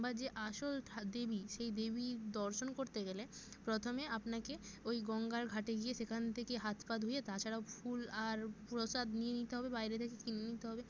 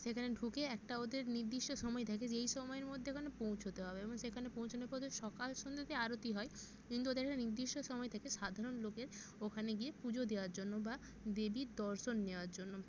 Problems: constant background noise